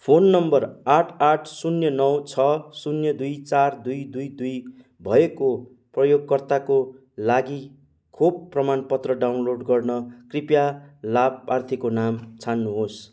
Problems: background sounds at intervals